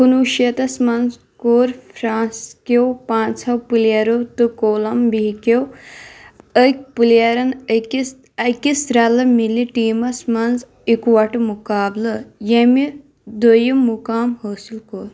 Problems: background sounds at intervals